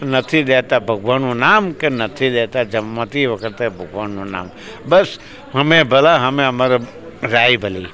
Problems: none marked